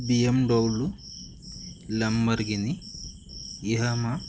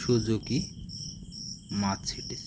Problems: constant background noise